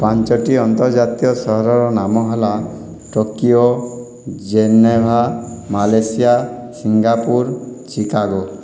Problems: none marked